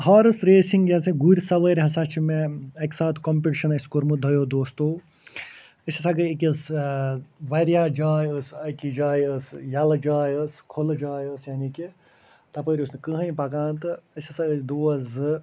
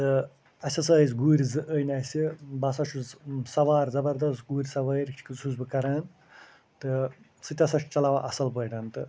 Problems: none marked